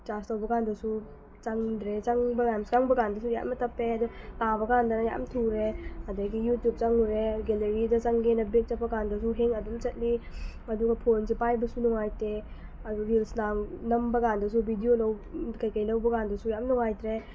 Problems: constant background noise